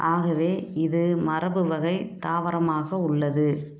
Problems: background sounds at intervals